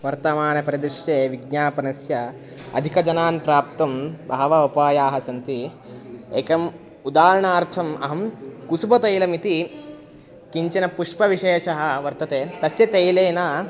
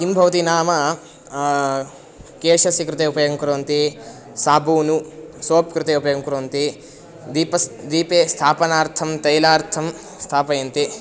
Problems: constant background noise, continuous background conversations